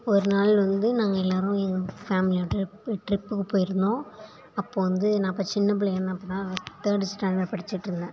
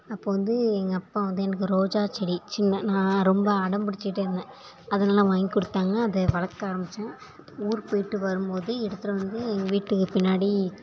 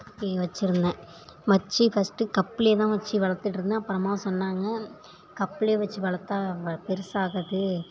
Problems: background conversations at intervals